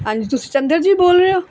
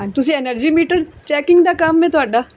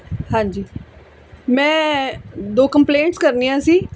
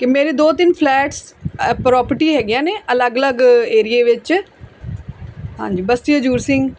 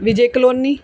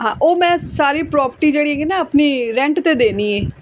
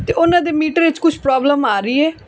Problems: none marked